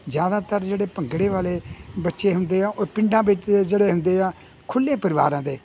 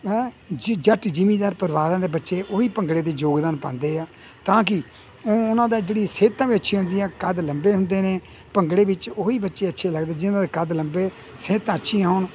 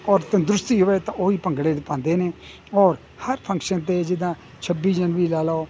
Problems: none marked